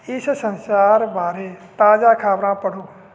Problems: constant background noise